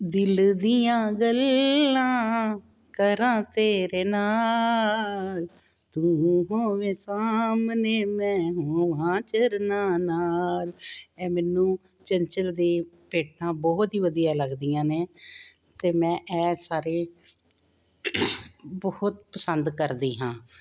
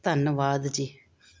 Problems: background sounds at intervals